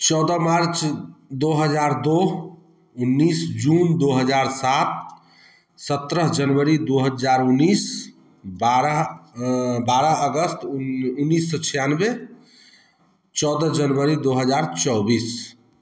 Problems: none marked